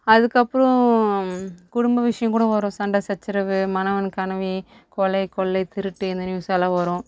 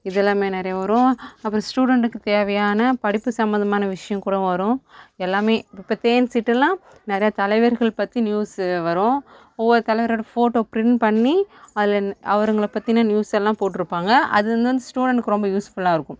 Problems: background sounds at intervals, background conversations at intervals